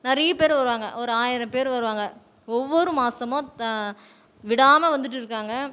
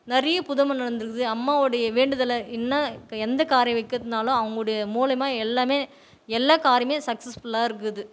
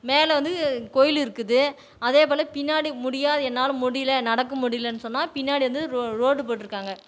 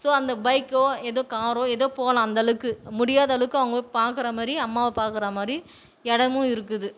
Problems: none marked